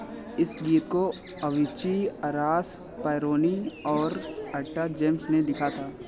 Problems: constant background noise